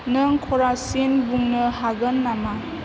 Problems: constant background noise